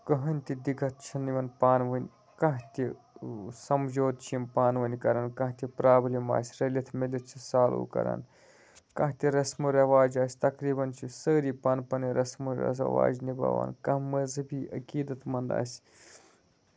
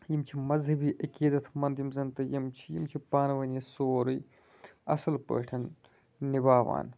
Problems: none marked